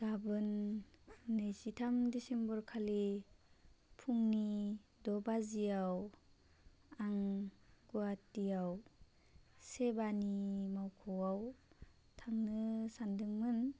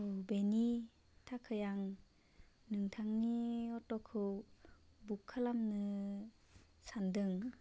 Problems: constant background noise